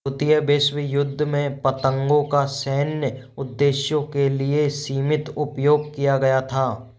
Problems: background sounds at intervals